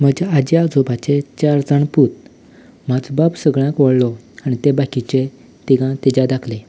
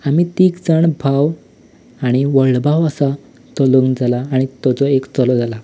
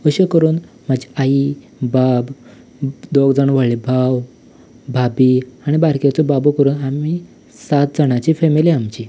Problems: background sounds at intervals